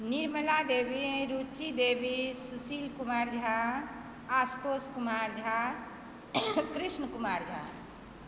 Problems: background sounds at intervals